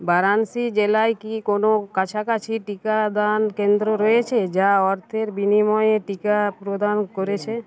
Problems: continuous background conversations